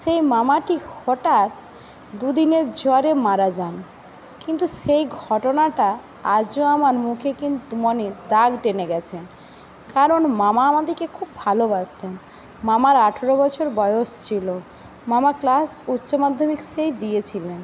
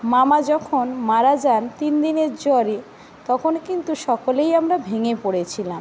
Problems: constant background noise